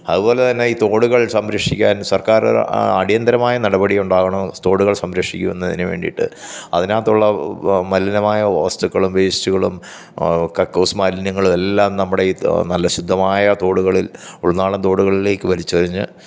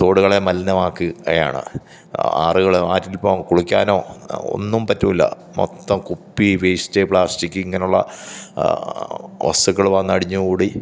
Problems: none marked